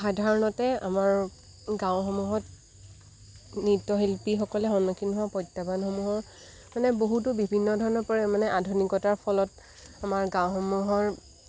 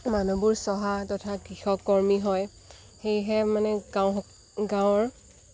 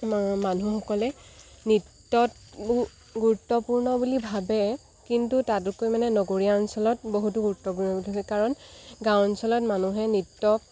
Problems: background sounds at intervals